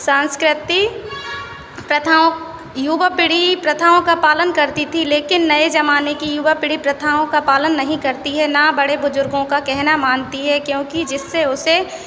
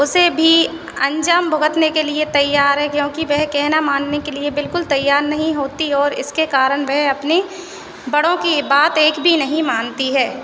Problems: constant background noise